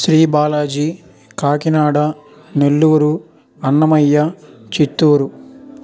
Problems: constant background noise